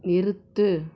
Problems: constant background noise